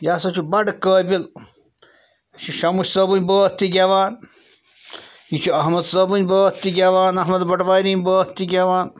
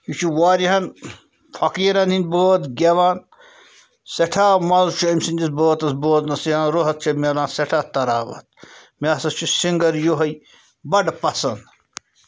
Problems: background sounds at intervals